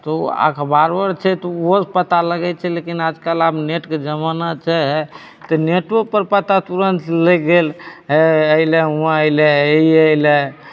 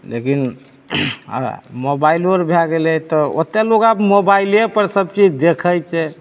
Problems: none marked